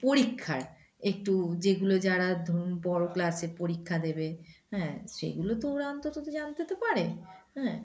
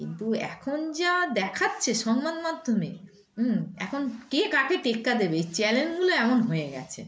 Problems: background sounds at intervals, background conversations at intervals